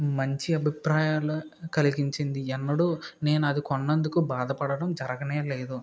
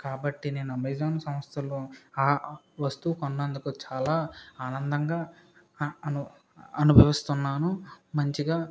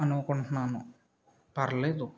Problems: background sounds at intervals